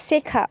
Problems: constant background noise